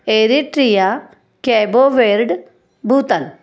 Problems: none marked